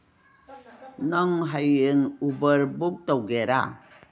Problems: none marked